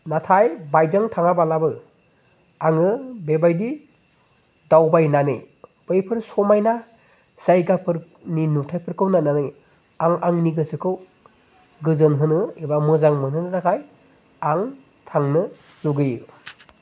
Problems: constant background noise